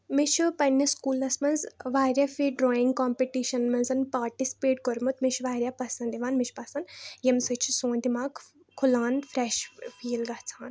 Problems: none marked